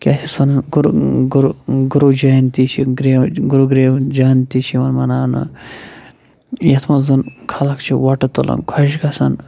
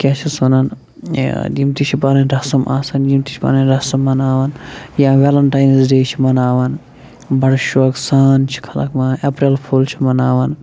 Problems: none marked